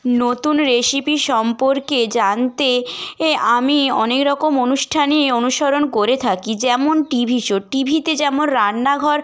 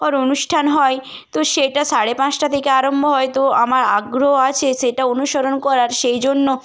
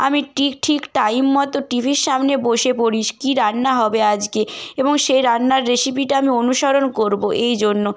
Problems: constant background noise